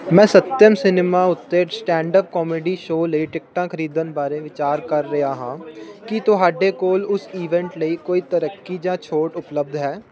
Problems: none marked